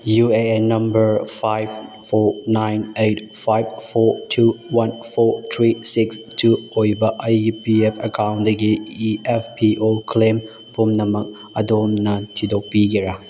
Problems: constant background noise